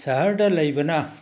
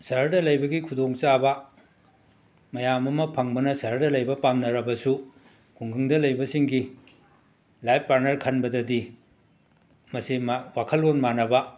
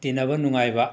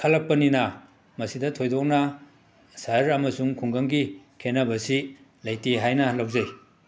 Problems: background sounds at intervals